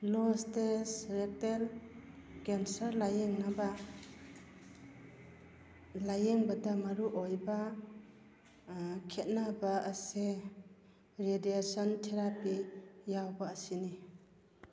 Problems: background sounds at intervals